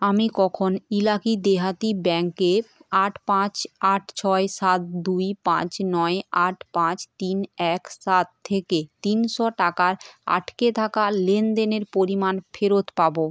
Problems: constant background noise